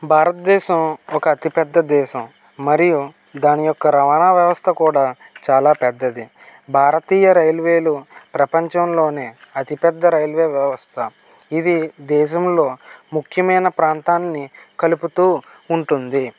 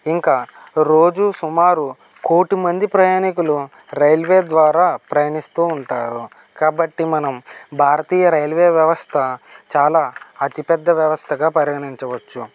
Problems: none marked